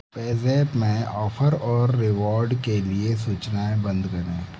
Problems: constant background noise